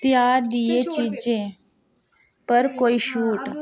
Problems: background sounds at intervals, background conversations at intervals